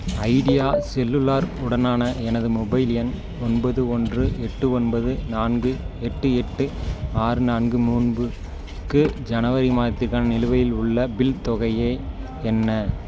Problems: none marked